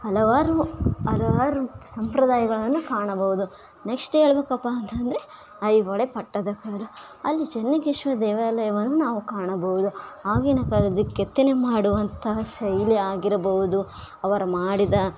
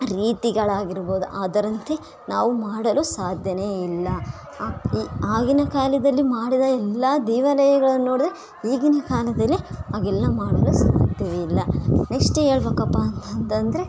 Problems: background sounds at intervals